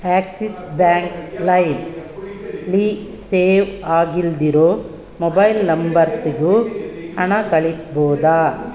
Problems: background sounds at intervals